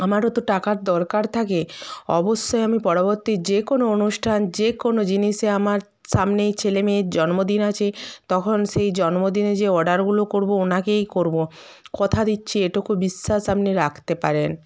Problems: continuous background conversations